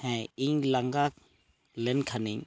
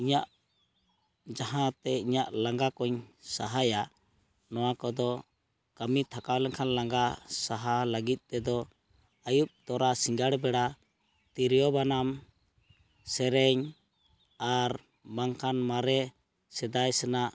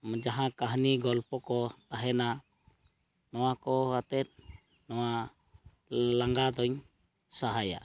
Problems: background sounds at intervals